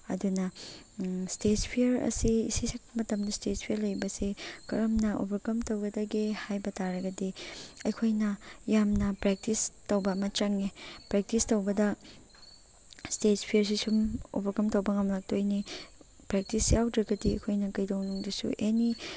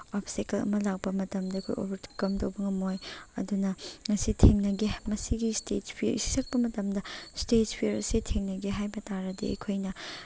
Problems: none marked